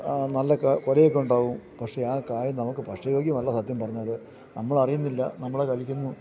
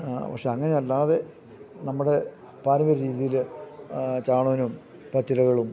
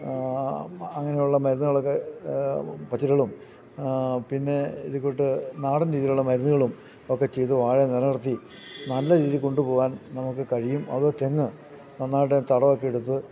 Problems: low volume